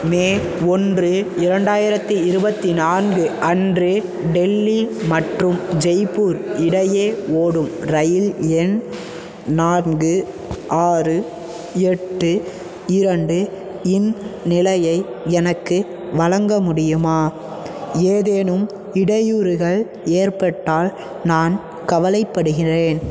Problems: constant background noise